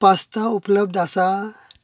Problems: none marked